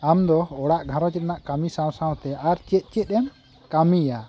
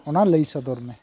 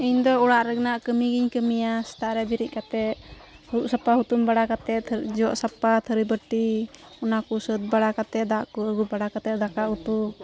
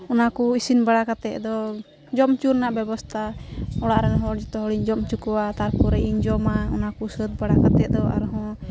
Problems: background sounds at intervals